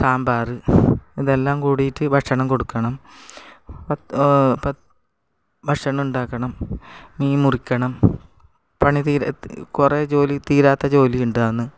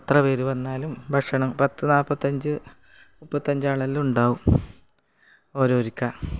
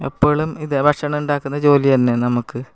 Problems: none marked